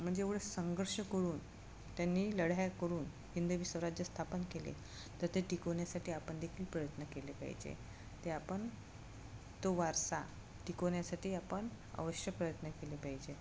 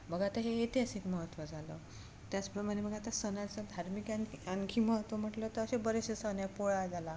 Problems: none marked